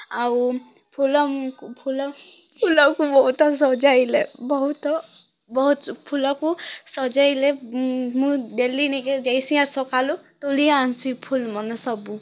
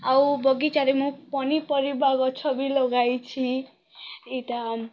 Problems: background sounds at intervals, background conversations at intervals